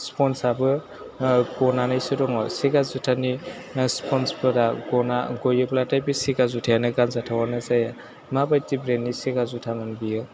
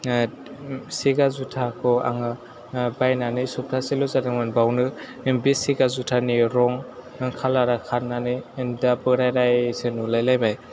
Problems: background sounds at intervals